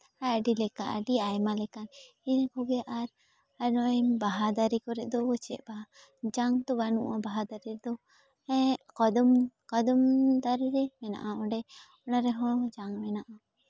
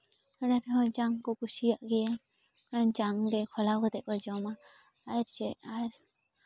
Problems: background sounds at intervals